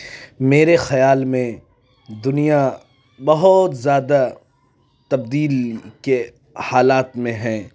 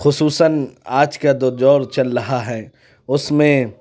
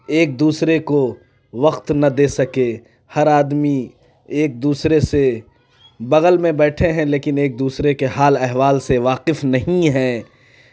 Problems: background sounds at intervals